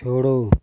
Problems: background sounds at intervals